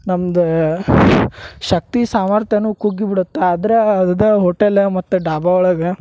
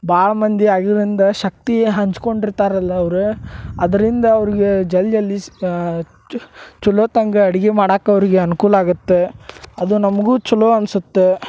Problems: none marked